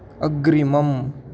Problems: constant background noise